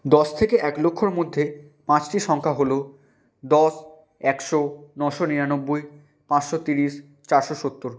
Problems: constant background noise